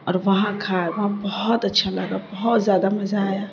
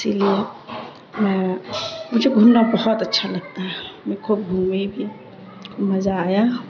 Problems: constant background noise